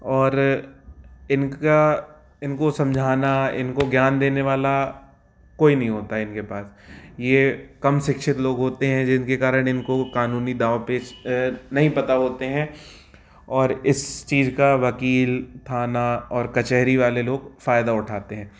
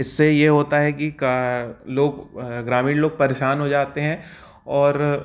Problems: none marked